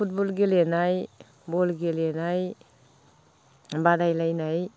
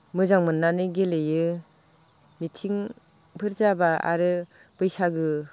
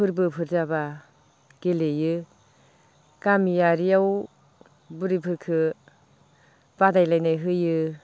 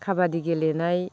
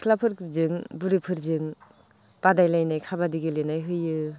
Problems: low volume